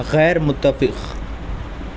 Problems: constant background noise